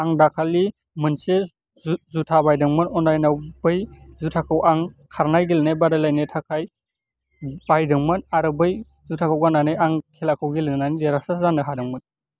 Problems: constant background noise